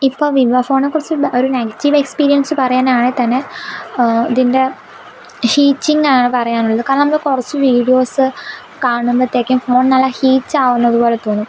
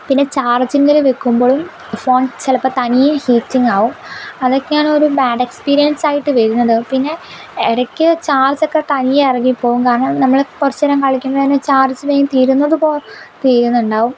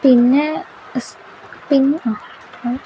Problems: background sounds at intervals